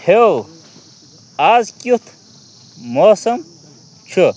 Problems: constant background noise, continuous background conversations